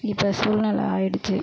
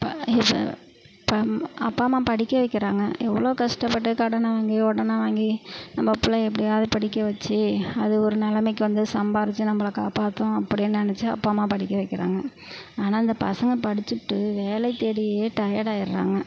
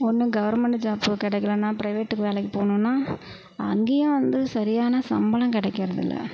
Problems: none marked